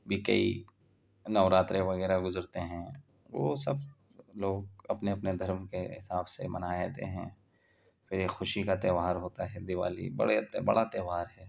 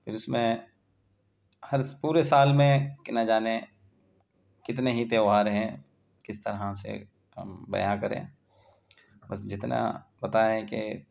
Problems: background sounds at intervals